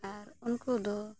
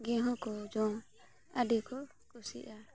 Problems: constant background noise, background conversations at intervals